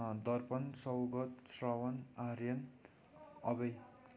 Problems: continuous background conversations